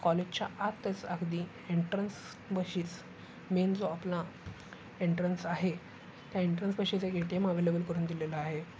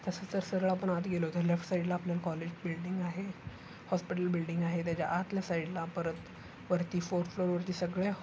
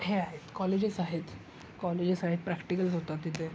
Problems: constant background noise